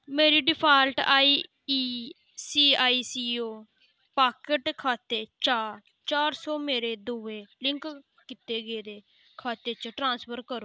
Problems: none marked